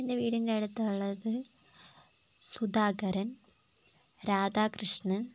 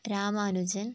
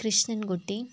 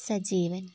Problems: constant background noise